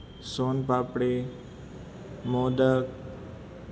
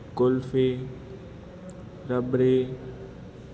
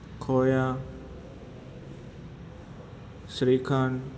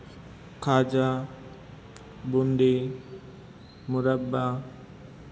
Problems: constant background noise